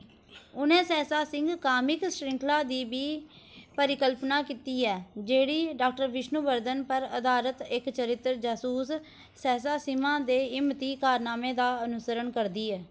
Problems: none marked